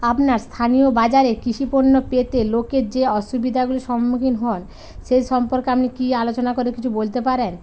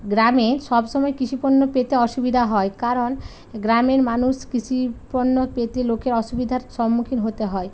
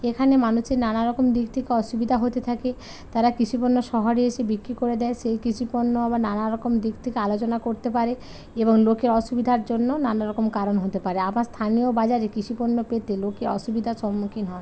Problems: constant background noise, continuous background conversations